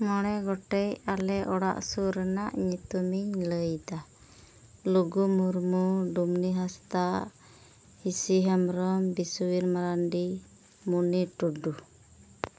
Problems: low volume